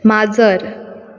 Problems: none marked